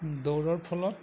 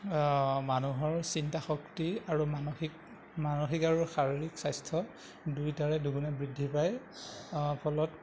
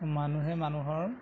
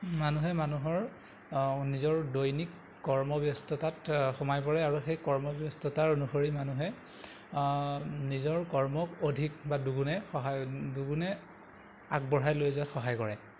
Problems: constant background noise